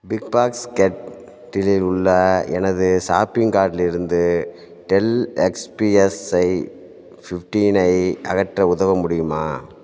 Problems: background sounds at intervals